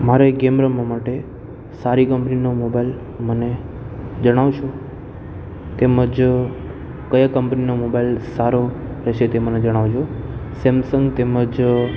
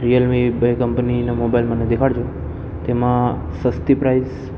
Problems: constant background noise